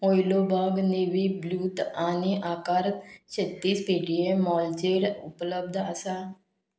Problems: none marked